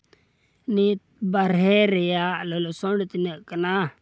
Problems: background sounds at intervals